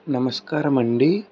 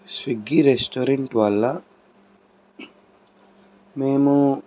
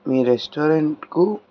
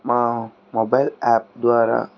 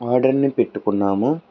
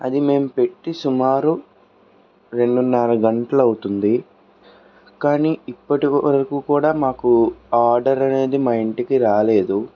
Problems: none marked